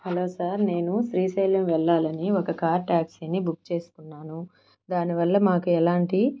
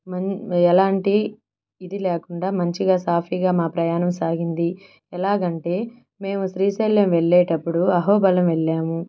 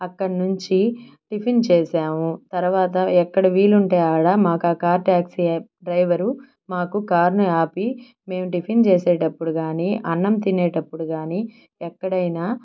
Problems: none marked